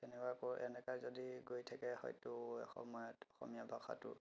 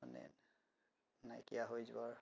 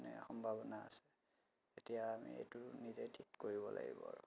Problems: background sounds at intervals